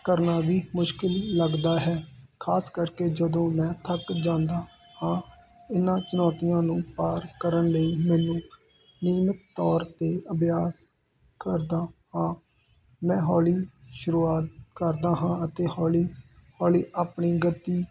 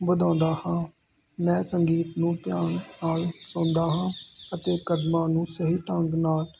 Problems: constant background noise